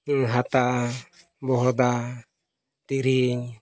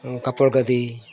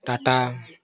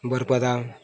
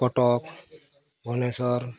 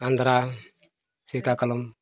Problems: constant background noise, background conversations at intervals